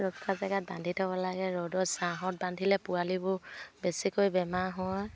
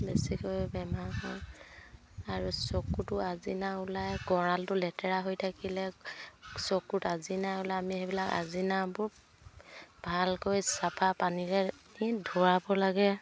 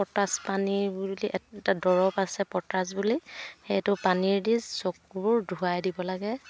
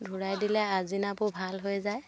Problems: background conversations at intervals